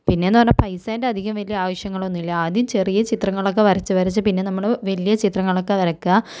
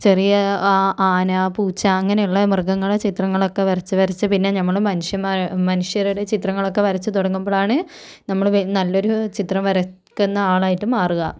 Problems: low volume